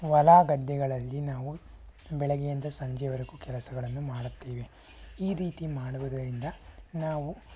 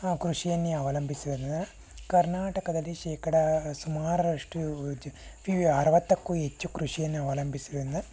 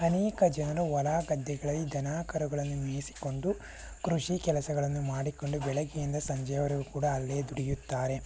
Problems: none marked